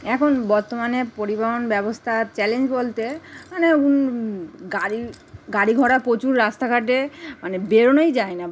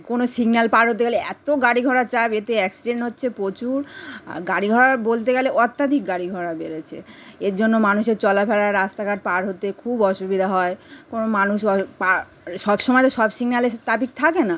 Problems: none marked